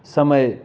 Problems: none marked